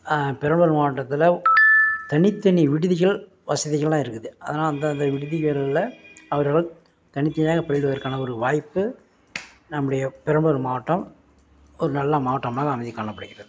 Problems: background sounds at intervals